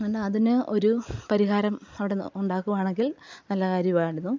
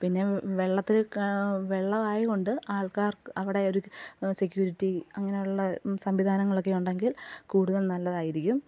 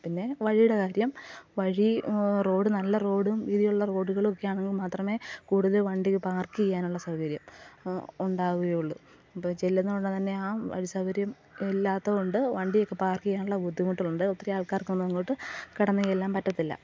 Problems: low volume